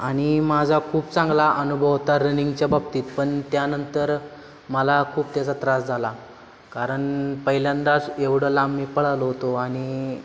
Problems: constant background noise